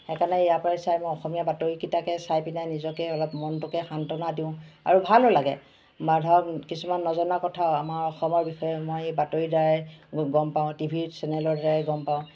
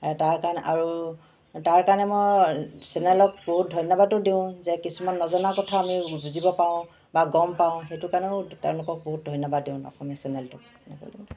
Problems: constant background noise, background conversations at intervals